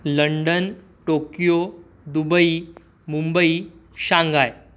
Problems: none marked